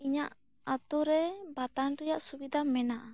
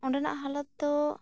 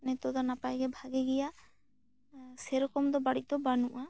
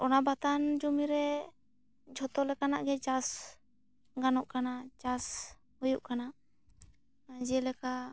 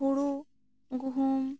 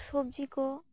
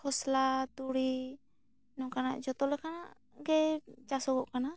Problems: none marked